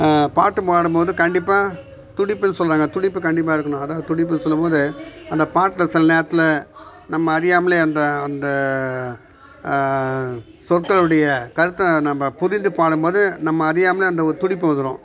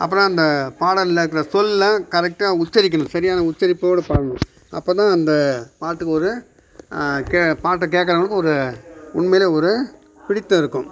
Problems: background conversations at intervals